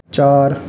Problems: background sounds at intervals